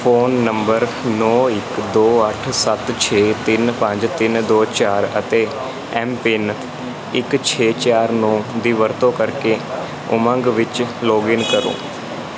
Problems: constant background noise